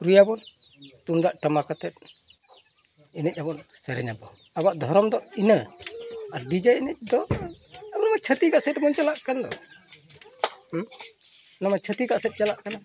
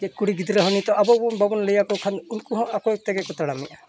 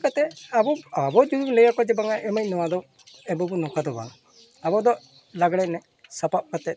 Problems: continuous background conversations